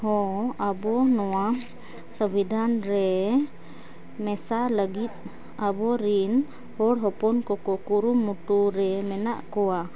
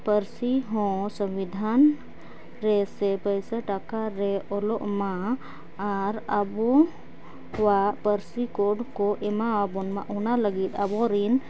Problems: background sounds at intervals